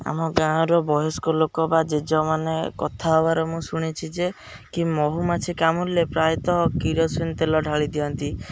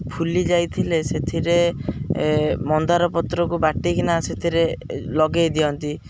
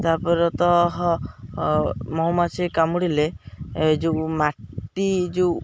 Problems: none marked